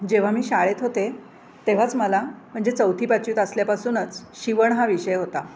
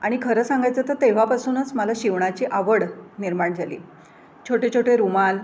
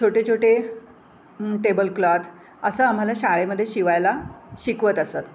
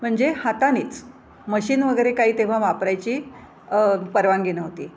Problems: constant background noise